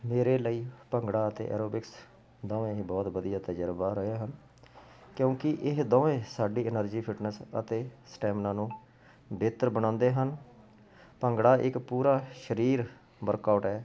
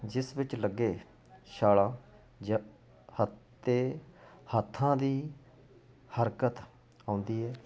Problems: constant background noise